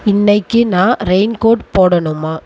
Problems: constant background noise